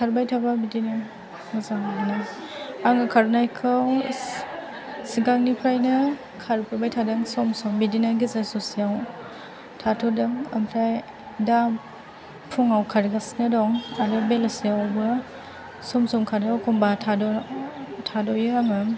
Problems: background sounds at intervals, background conversations at intervals